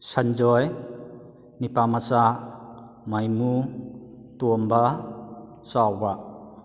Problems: echo